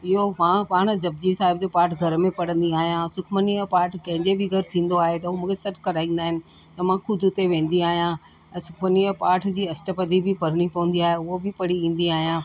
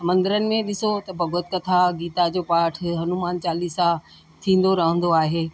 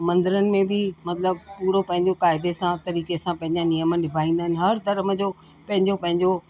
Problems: constant background noise